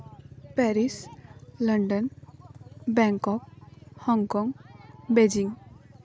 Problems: none marked